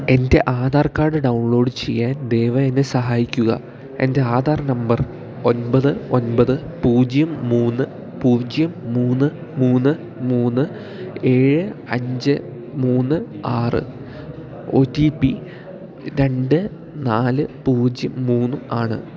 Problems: constant background noise